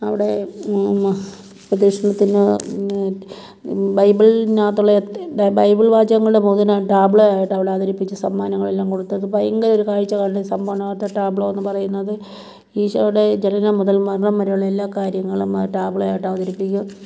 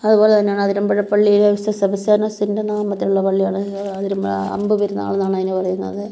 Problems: none marked